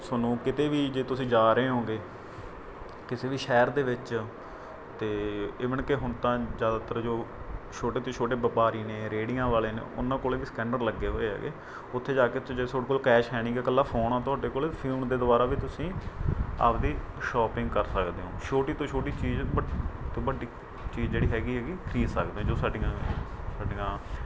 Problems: constant background noise